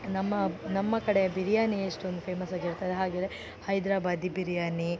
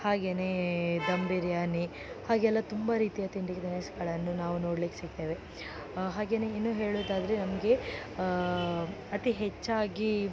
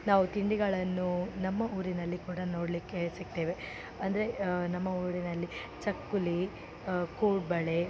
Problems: none marked